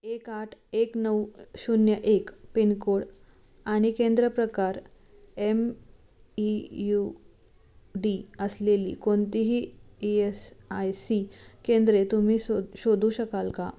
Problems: none marked